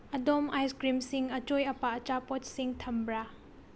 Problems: low volume